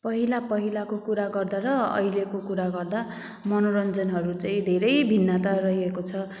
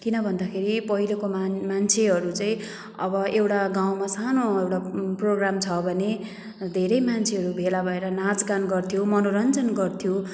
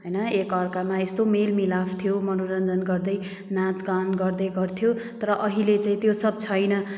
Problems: background sounds at intervals